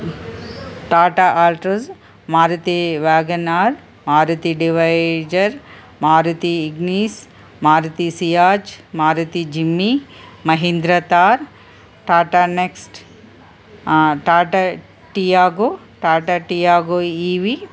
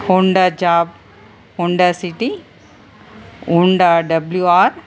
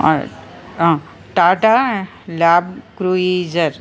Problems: constant background noise